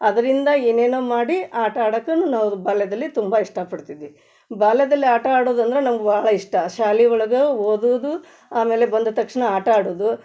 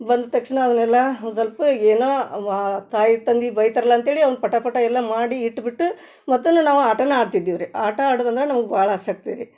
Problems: none marked